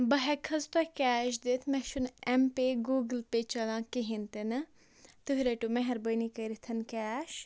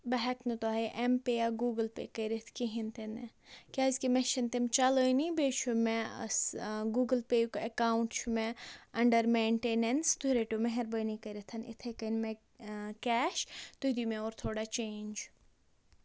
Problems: none marked